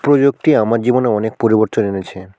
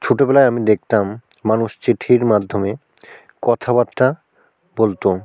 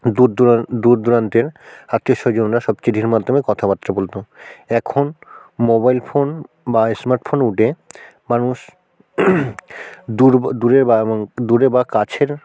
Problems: background sounds at intervals